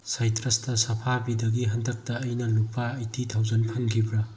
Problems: low volume